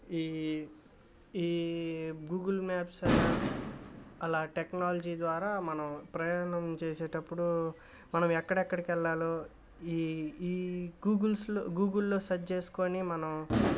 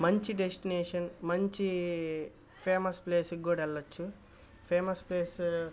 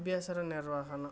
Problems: background sounds at intervals